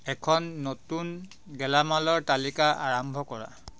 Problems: background sounds at intervals